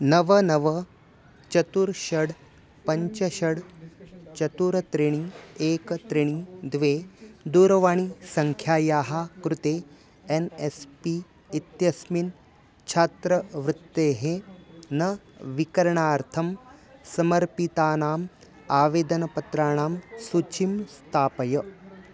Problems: constant background noise